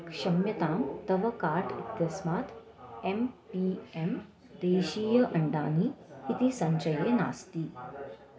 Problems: continuous background conversations